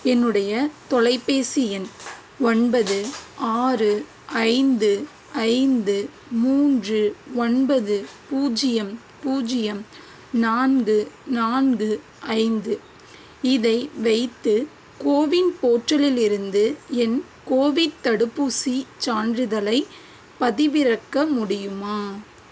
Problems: constant background noise